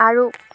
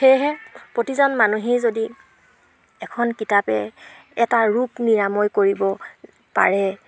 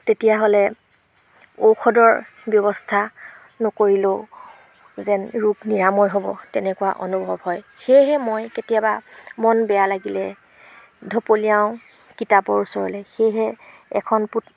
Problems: background sounds at intervals